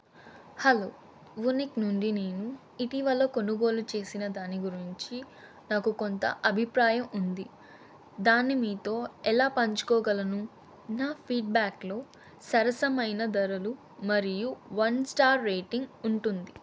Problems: constant background noise